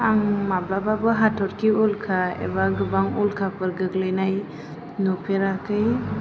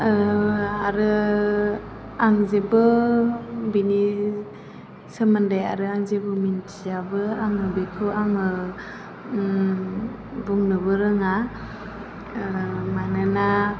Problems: constant background noise